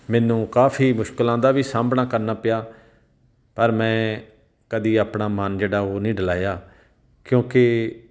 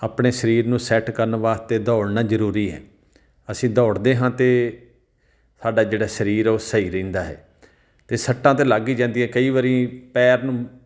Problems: none marked